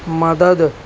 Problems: constant background noise